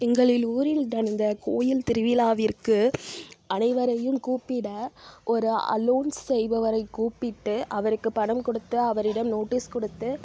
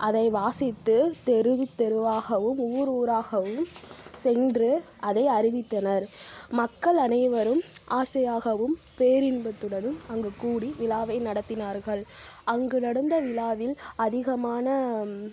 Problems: none marked